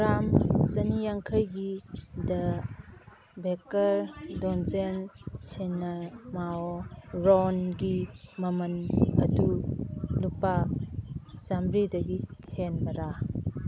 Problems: constant background noise